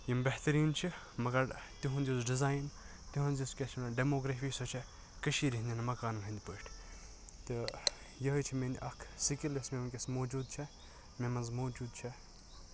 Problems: background sounds at intervals